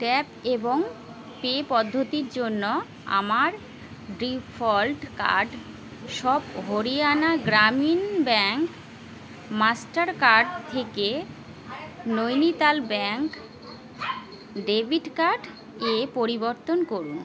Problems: none marked